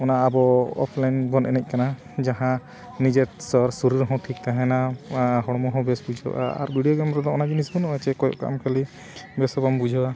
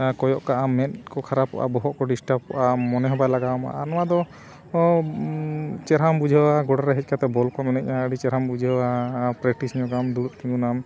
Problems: background sounds at intervals